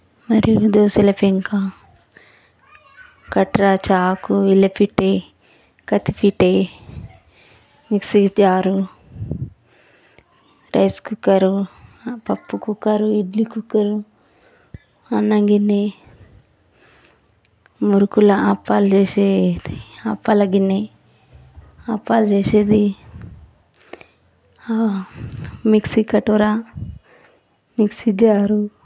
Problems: constant background noise, background conversations at intervals